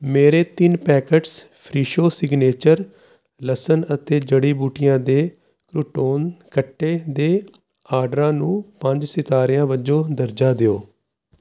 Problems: constant background noise